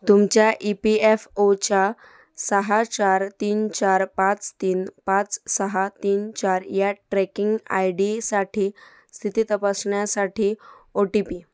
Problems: background sounds at intervals